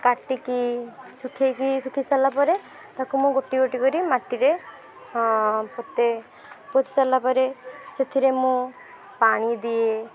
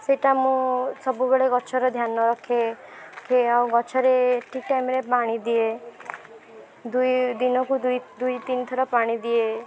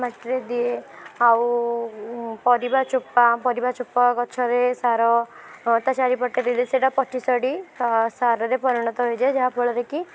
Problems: background sounds at intervals, background conversations at intervals